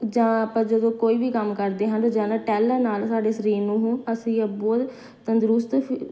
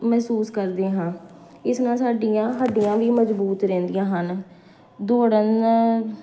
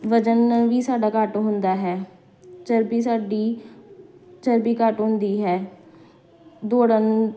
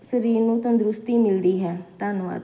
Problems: none marked